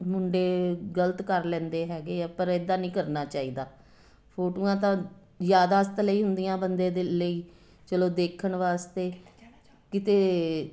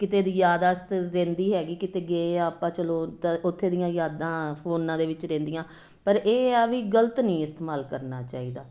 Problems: constant background noise